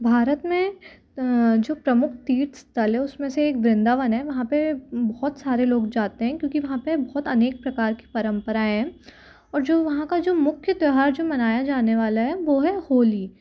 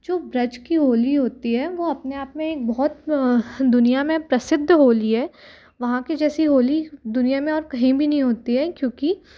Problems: none marked